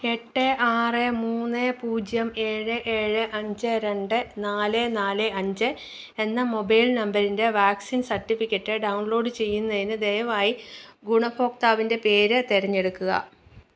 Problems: none marked